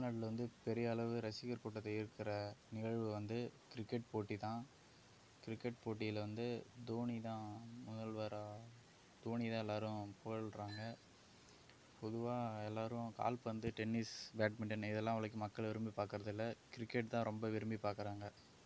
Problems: background sounds at intervals